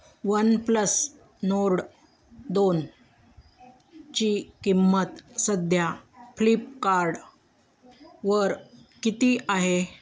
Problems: background sounds at intervals